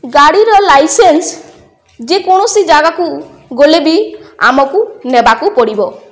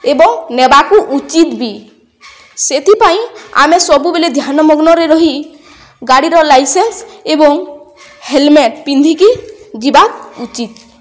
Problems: none marked